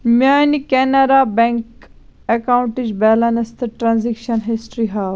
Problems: constant background noise